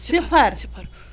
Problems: background sounds at intervals, background conversations at intervals